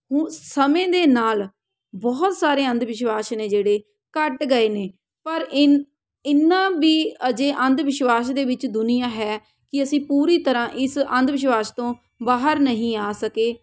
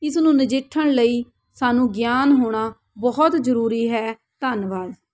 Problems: background sounds at intervals